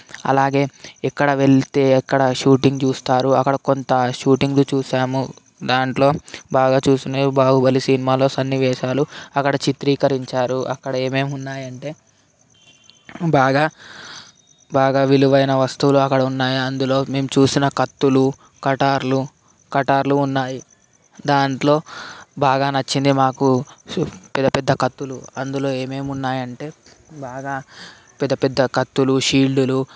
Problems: constant background noise